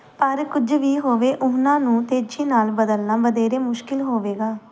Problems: background conversations at intervals